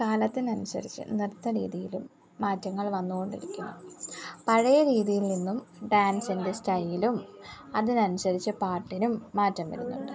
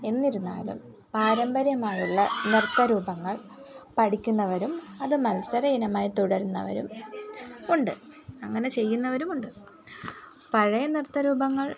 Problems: background sounds at intervals